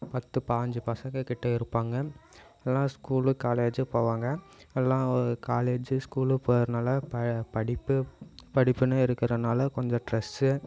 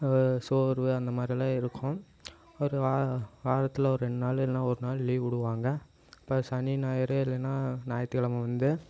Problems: none marked